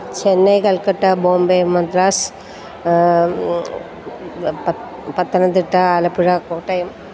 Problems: constant background noise